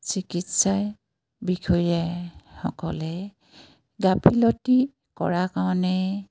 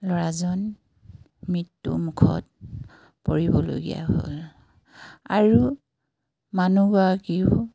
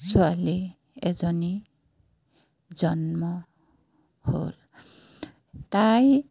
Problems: background sounds at intervals